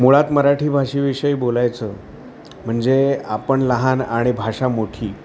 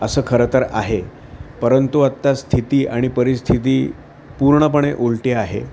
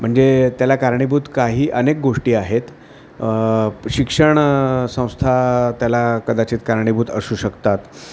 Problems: constant background noise